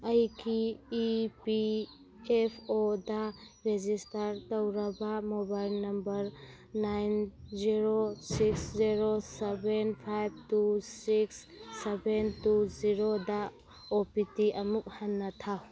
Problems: background sounds at intervals, background conversations at intervals